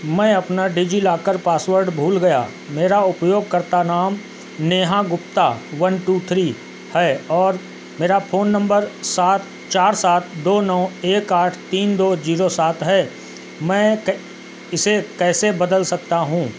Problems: constant background noise